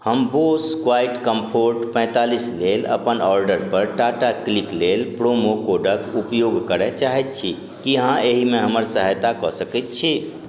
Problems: none marked